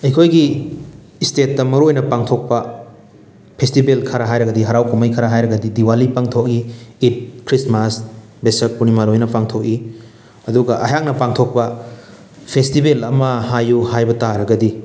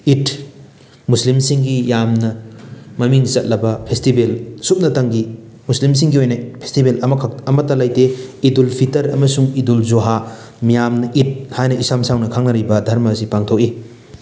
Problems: none marked